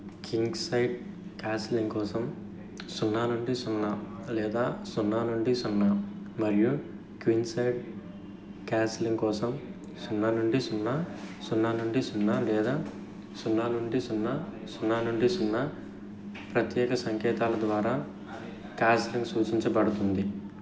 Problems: background sounds at intervals